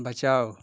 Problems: constant background noise